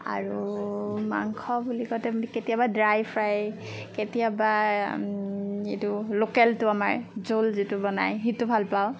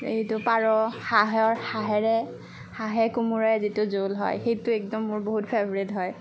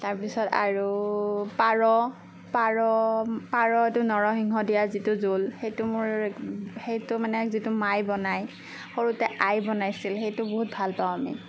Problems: none marked